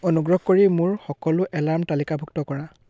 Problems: constant background noise